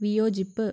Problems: background sounds at intervals, low volume